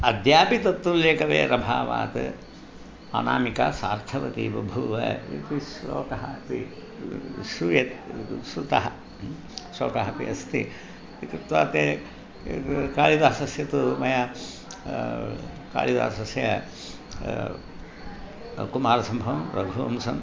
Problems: none marked